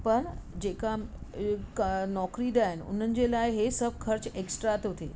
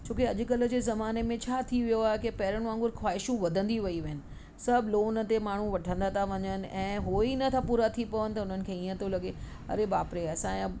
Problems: constant background noise